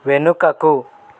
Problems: none marked